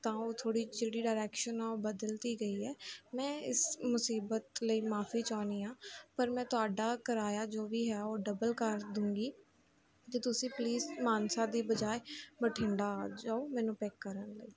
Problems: constant background noise